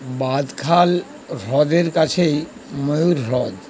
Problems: constant background noise